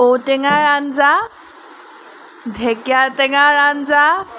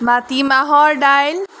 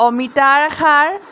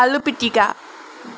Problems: background sounds at intervals